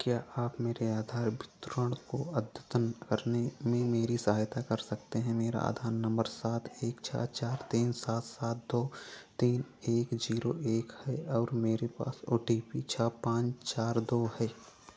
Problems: low volume